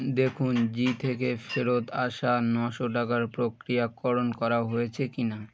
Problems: constant background noise